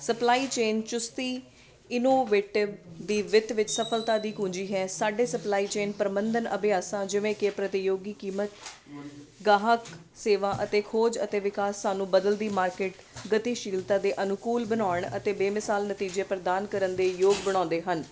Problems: none marked